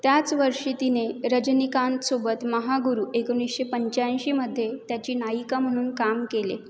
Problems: none marked